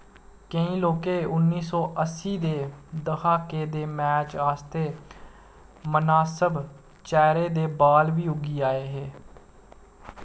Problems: constant background noise